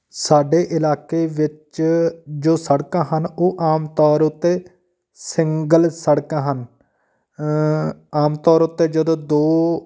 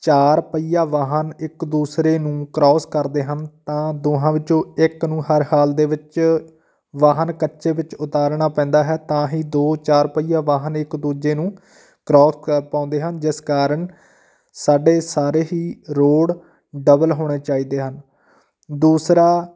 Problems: none marked